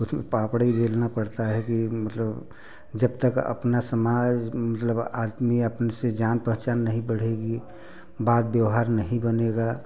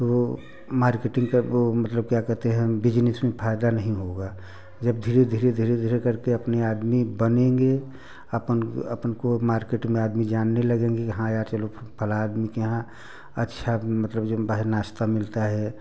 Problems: none marked